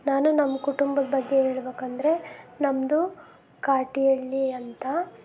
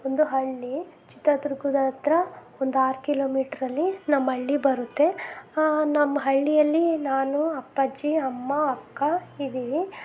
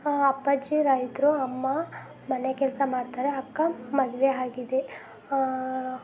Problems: background sounds at intervals